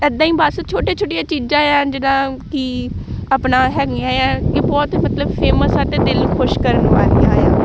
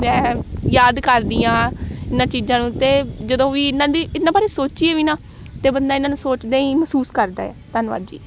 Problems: background sounds at intervals